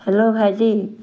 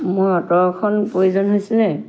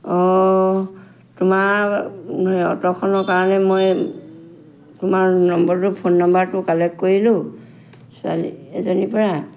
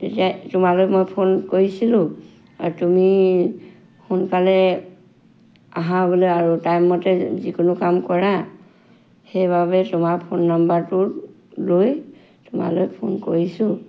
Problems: background sounds at intervals